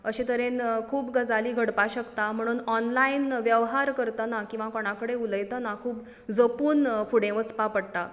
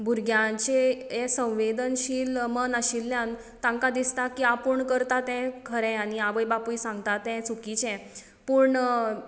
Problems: none marked